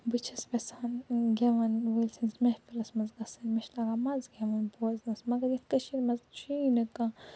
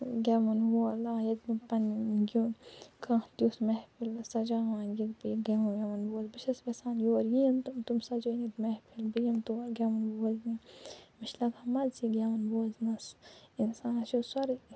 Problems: low volume